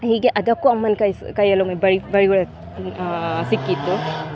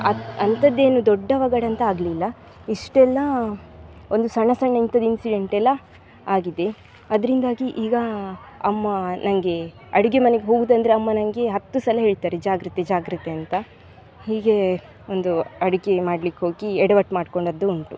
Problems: background sounds at intervals